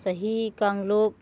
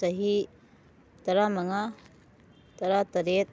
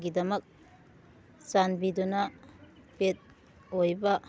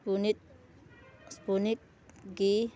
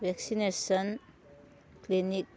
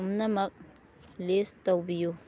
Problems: none marked